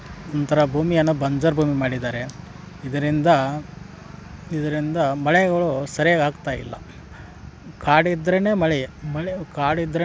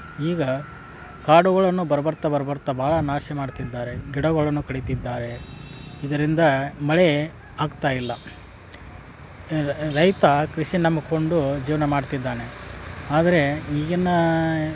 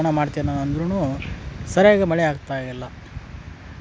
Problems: background sounds at intervals